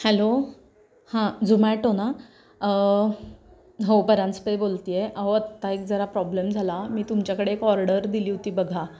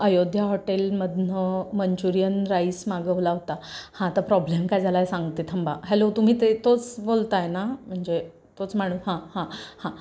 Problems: none marked